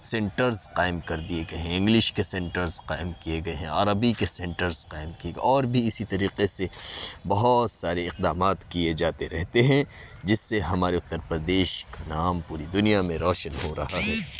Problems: constant background noise